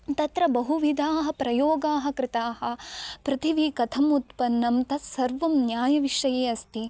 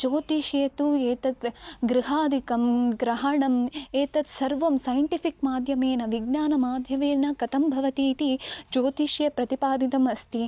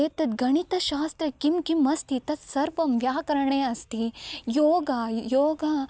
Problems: none marked